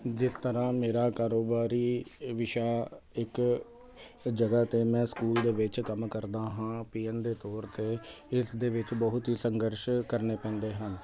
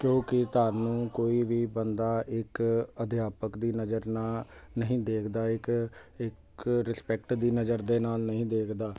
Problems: constant background noise